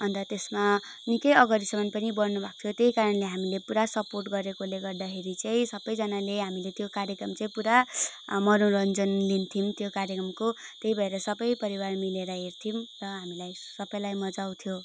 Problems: none marked